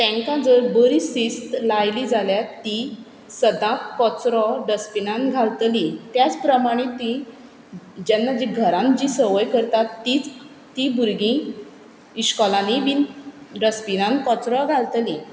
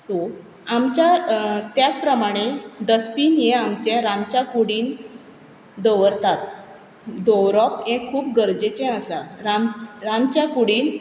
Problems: background sounds at intervals